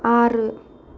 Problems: constant background noise